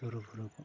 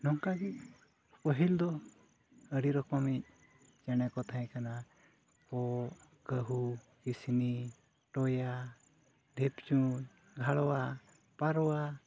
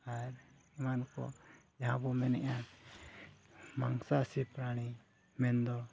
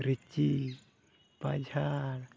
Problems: constant background noise